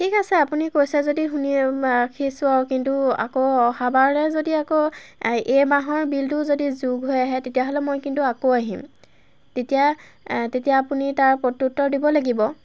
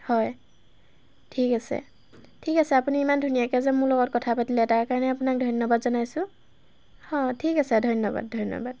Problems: background sounds at intervals